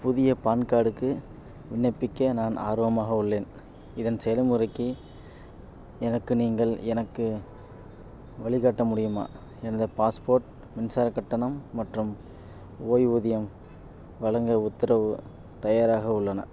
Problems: none marked